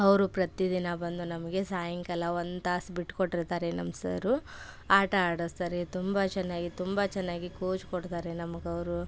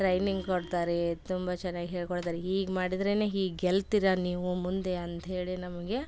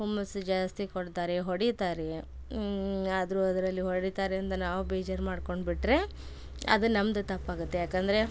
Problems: none marked